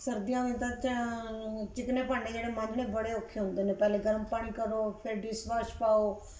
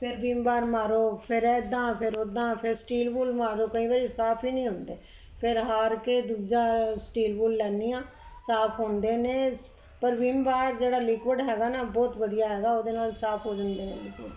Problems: background sounds at intervals